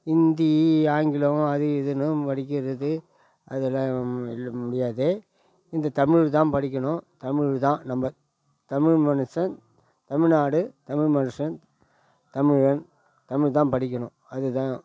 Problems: none marked